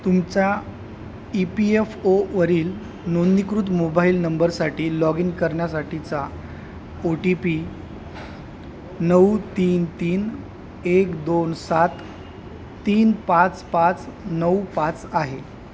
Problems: constant background noise